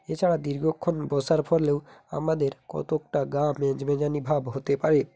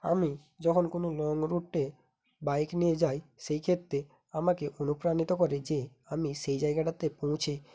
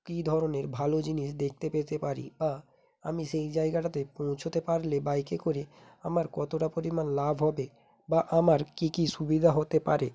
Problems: none marked